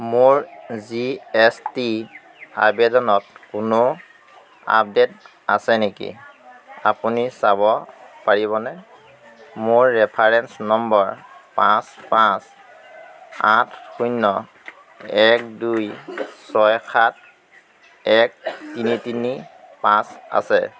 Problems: constant background noise, background conversations at intervals